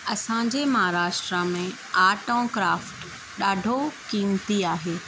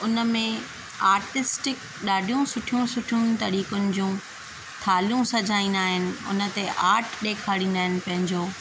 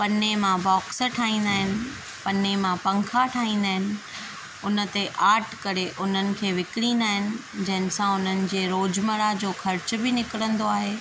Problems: constant background noise